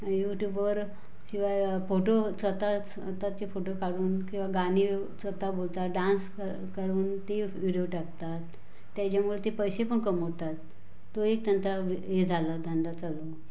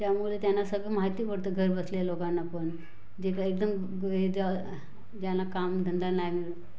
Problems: constant background noise, background conversations at intervals